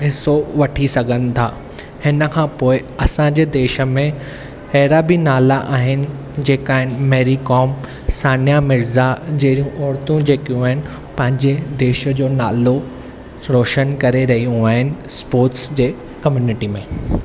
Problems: none marked